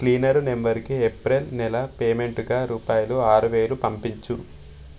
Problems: none marked